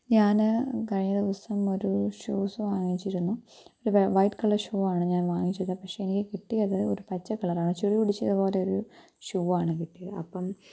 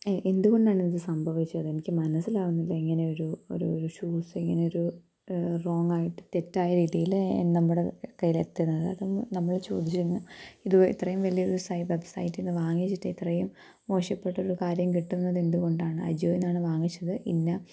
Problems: low volume